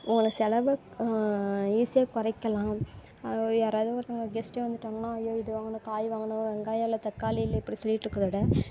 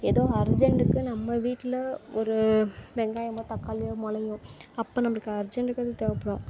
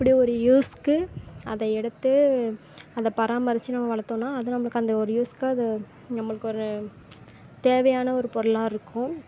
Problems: constant background noise